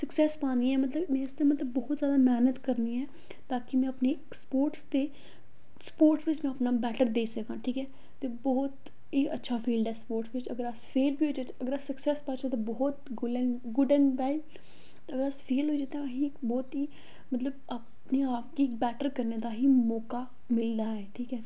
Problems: echo